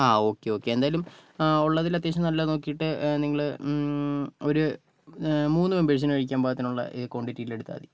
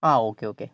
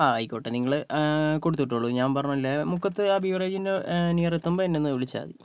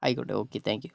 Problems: none marked